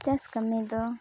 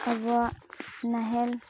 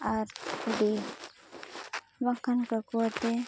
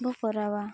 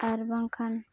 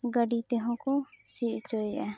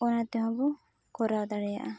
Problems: background sounds at intervals